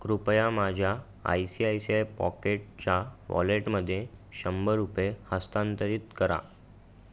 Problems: none marked